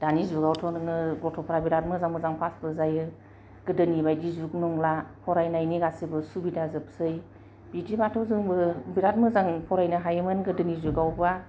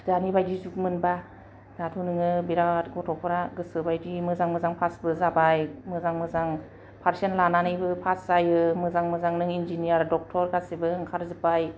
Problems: low volume